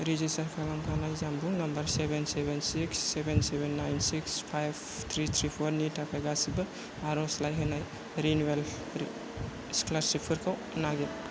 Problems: constant background noise